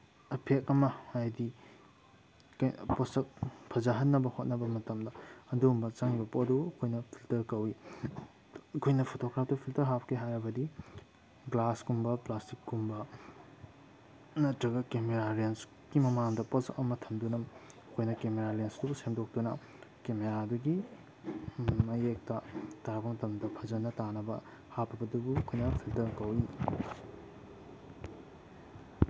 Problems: background sounds at intervals